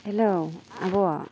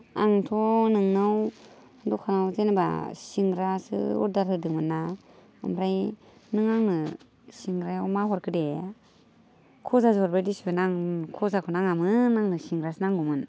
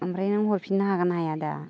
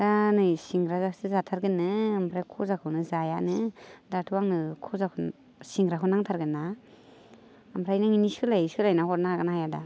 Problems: none marked